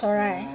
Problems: continuous background conversations